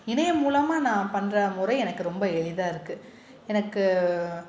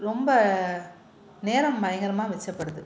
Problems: none marked